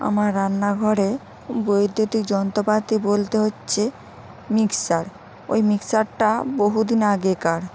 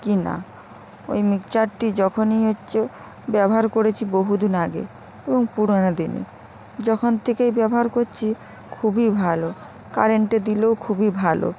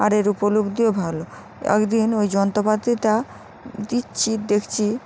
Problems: constant background noise